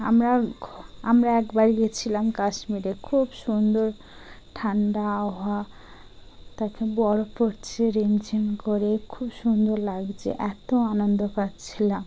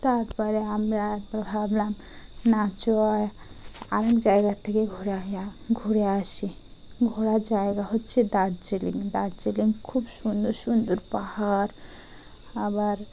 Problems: none marked